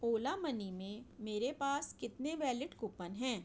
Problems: low volume